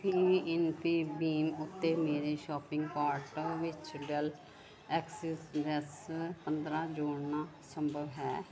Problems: none marked